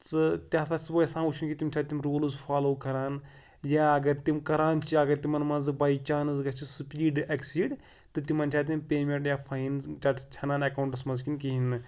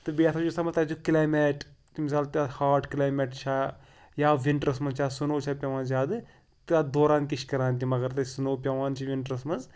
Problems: background sounds at intervals